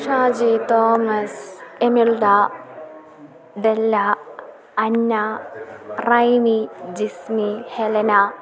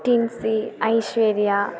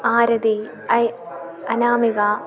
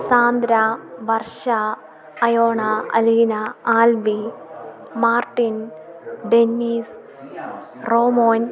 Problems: continuous background conversations